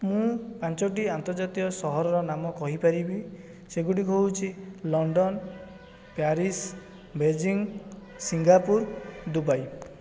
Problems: constant background noise